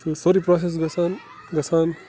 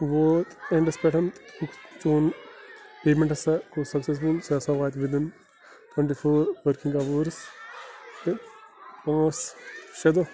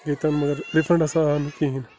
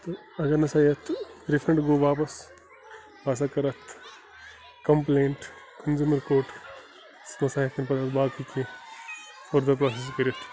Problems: constant background noise